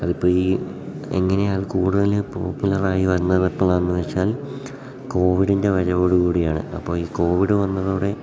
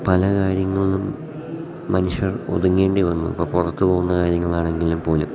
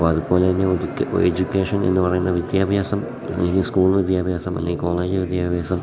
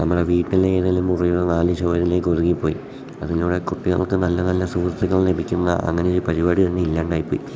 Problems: background sounds at intervals